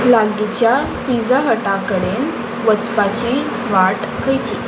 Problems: constant background noise